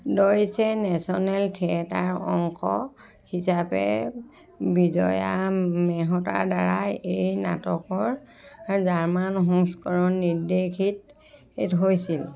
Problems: continuous background conversations